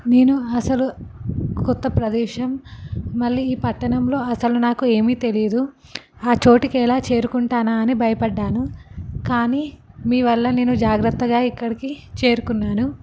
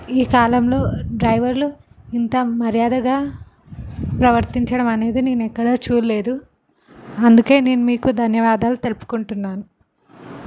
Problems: none marked